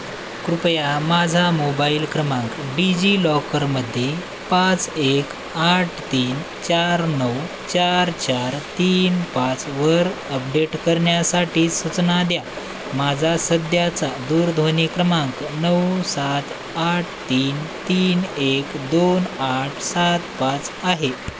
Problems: constant background noise